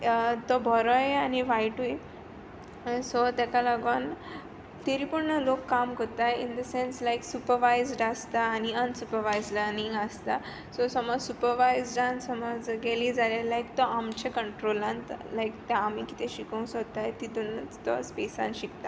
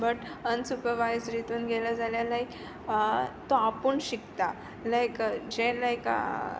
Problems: none marked